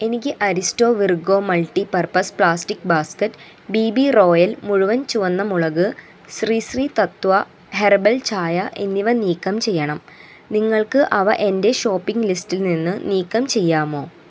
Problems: constant background noise